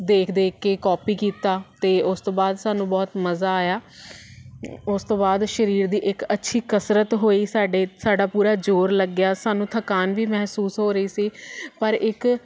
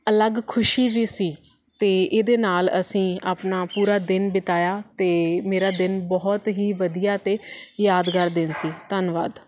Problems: none marked